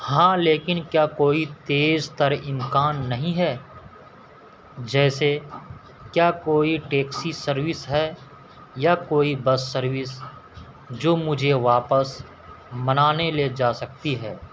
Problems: constant background noise